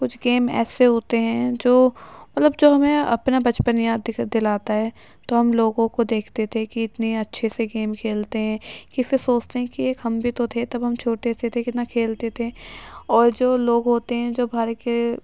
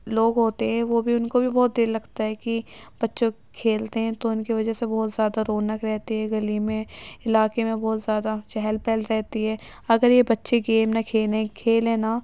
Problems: constant background noise